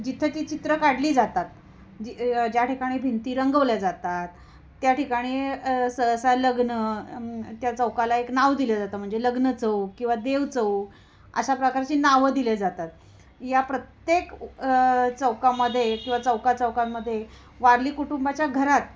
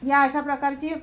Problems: constant background noise, background conversations at intervals